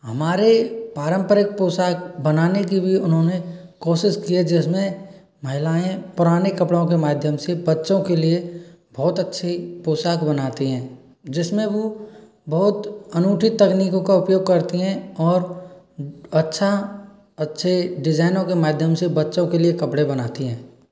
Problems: background sounds at intervals